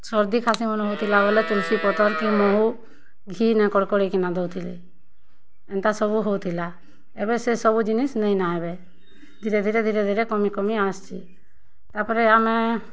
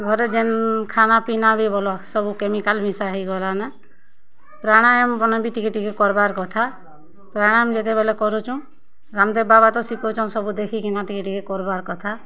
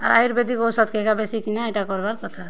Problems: constant background noise, continuous background conversations